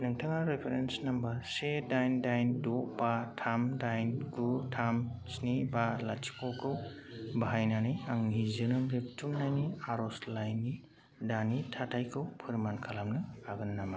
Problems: none marked